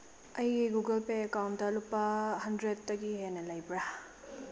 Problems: low volume